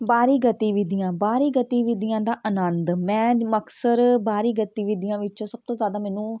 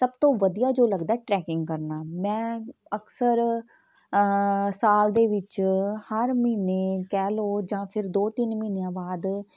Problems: continuous background conversations